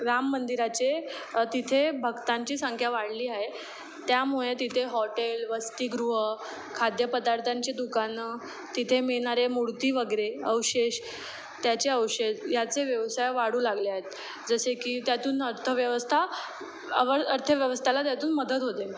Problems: background sounds at intervals